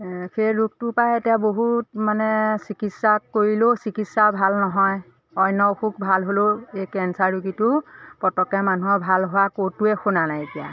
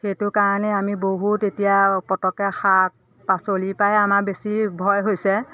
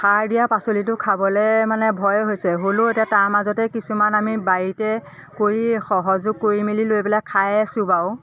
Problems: constant background noise, continuous background conversations